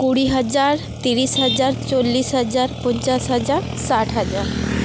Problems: constant background noise